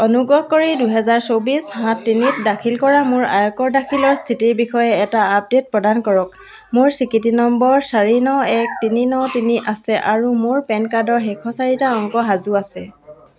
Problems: none marked